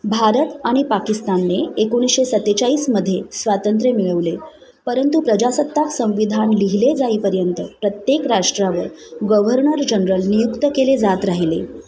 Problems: continuous background conversations